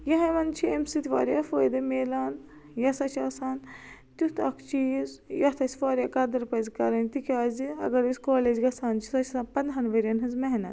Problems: none marked